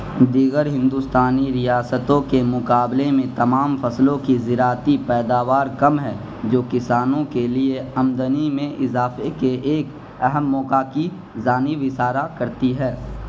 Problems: constant background noise